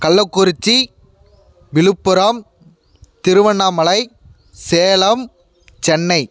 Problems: background sounds at intervals